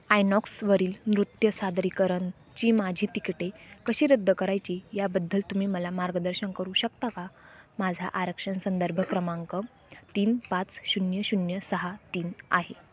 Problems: none marked